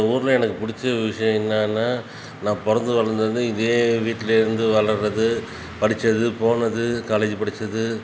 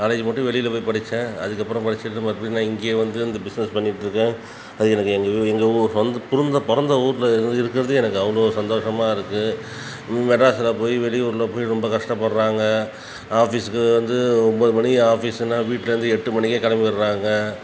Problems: background sounds at intervals